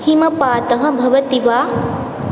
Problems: none marked